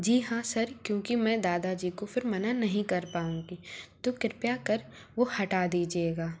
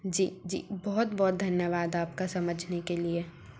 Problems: constant background noise